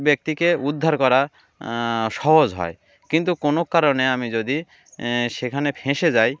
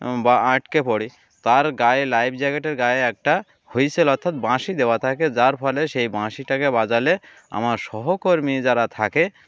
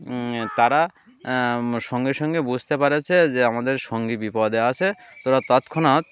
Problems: none marked